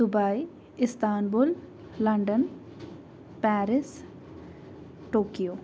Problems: constant background noise